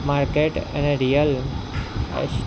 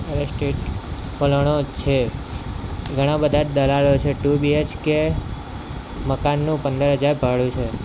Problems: constant background noise